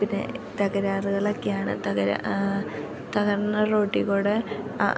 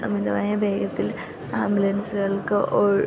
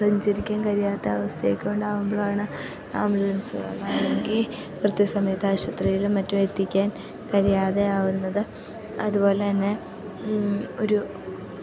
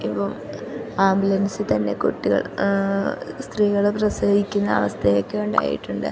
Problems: constant background noise, low volume